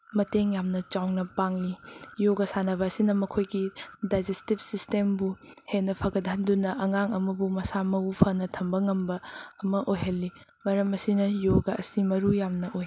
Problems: constant background noise